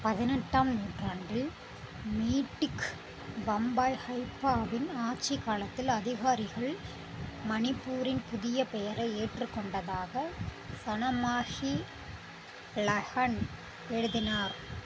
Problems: none marked